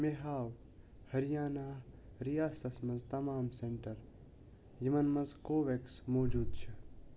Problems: constant background noise